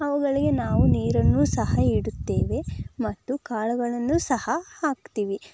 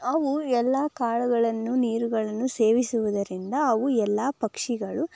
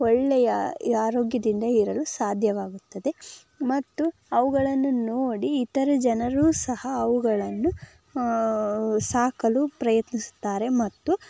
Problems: background sounds at intervals